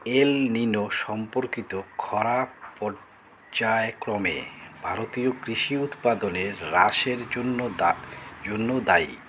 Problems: constant background noise